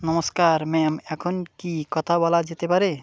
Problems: constant background noise